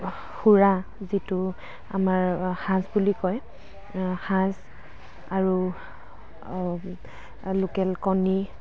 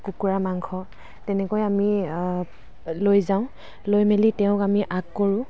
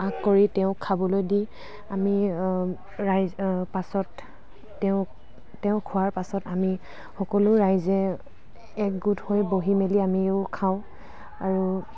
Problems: constant background noise, background conversations at intervals